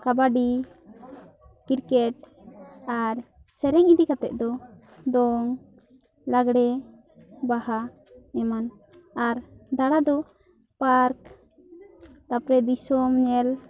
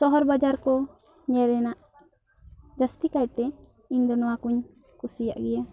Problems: continuous background conversations